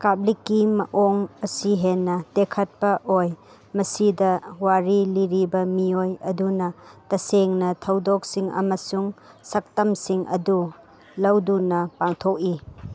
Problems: none marked